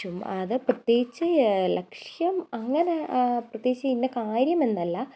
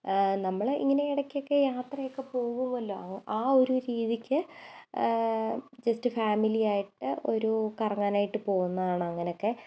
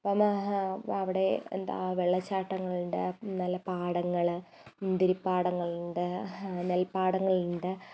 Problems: none marked